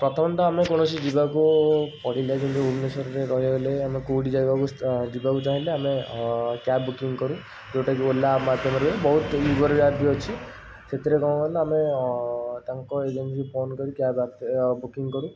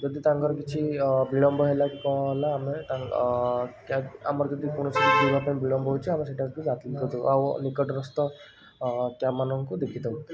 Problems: constant background noise